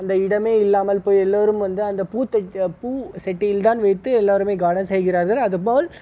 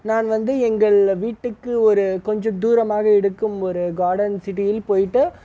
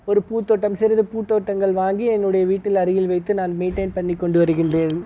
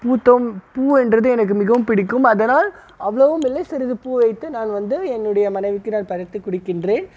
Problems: none marked